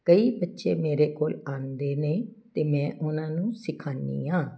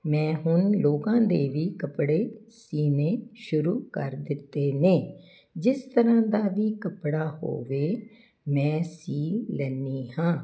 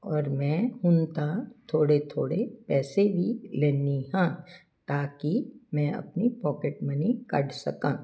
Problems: none marked